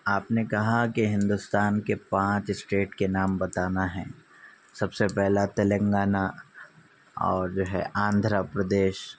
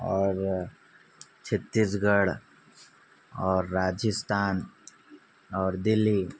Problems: none marked